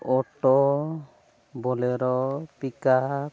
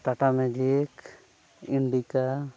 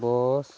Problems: low volume